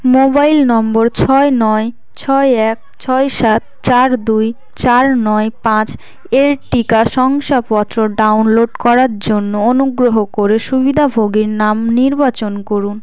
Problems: constant background noise, continuous background conversations